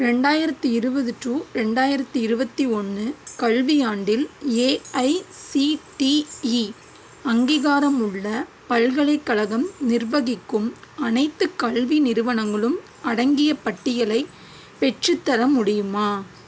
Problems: constant background noise